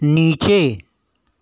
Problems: constant background noise